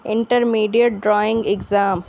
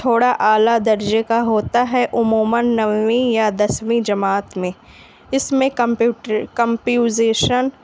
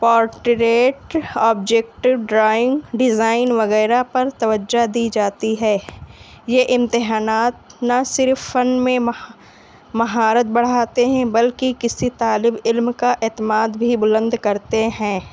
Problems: background sounds at intervals